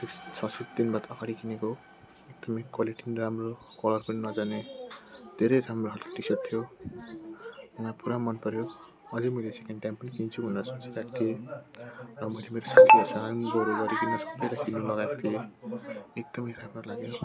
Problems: constant background noise, continuous background conversations